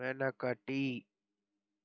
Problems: none marked